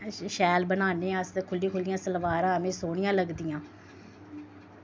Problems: constant background noise